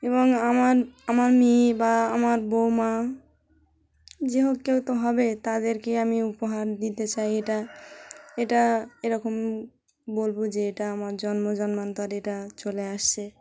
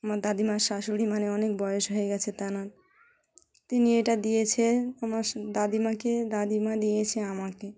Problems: constant background noise, background conversations at intervals